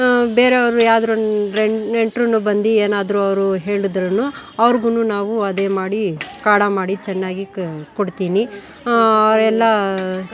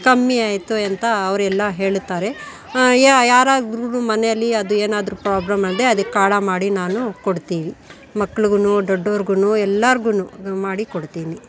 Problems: background sounds at intervals